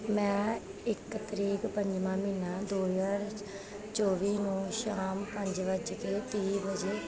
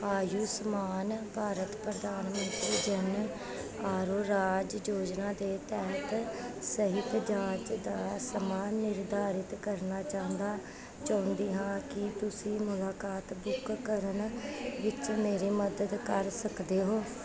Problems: constant background noise, continuous background conversations